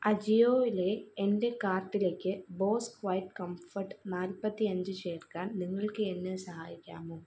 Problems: low volume